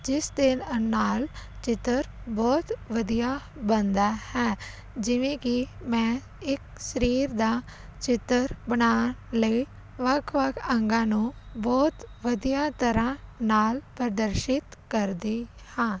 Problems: none marked